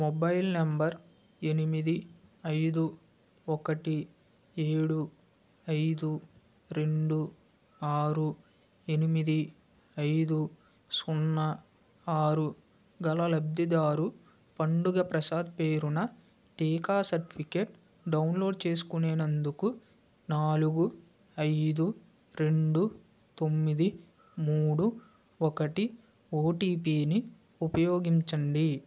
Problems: constant background noise